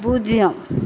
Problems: constant background noise